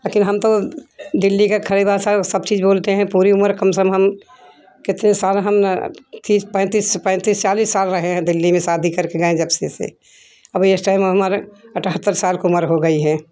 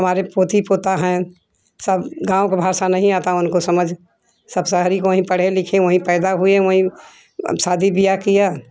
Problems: none marked